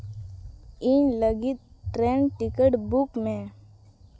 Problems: none marked